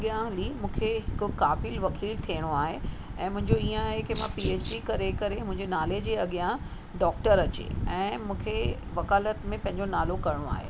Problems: constant background noise